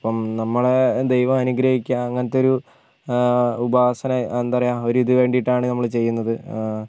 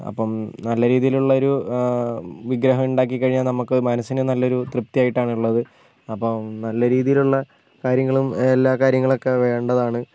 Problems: none marked